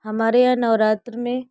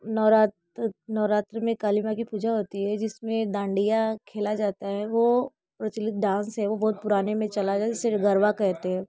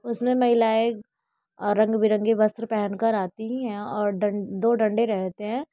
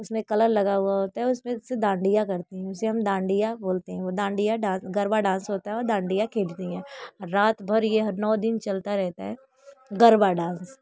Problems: constant background noise